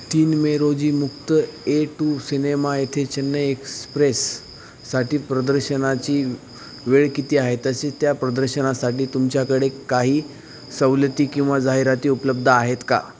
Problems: none marked